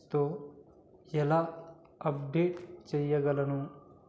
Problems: low volume